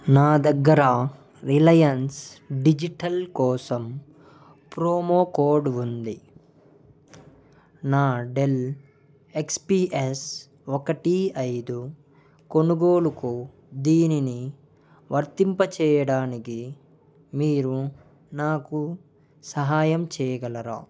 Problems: background conversations at intervals